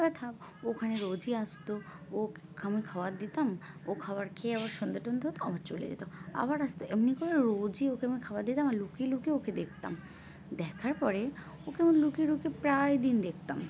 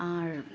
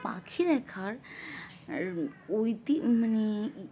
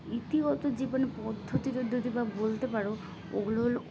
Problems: constant background noise, continuous background conversations